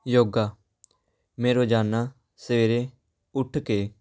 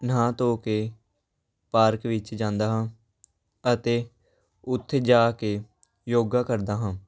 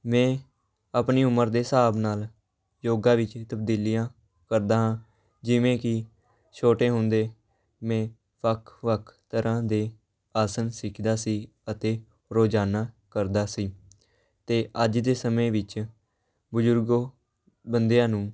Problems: background sounds at intervals, background conversations at intervals